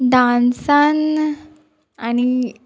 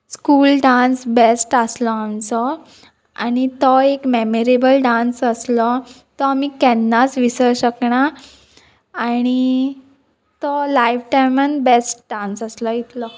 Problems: none marked